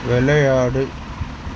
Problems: constant background noise